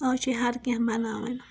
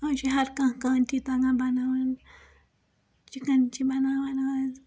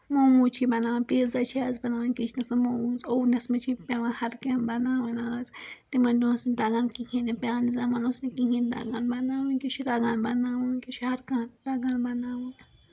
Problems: background sounds at intervals